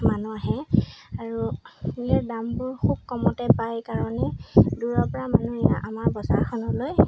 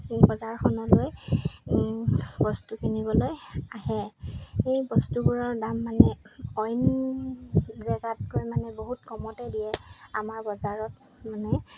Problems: background sounds at intervals